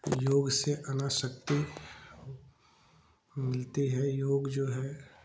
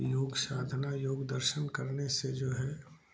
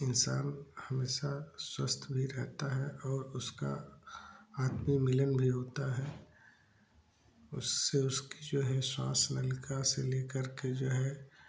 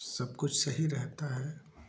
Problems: background sounds at intervals, background conversations at intervals